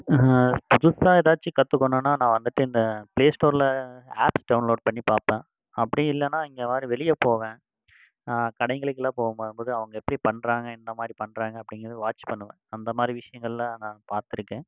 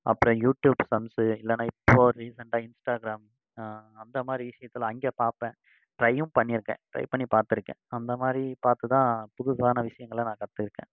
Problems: background conversations at intervals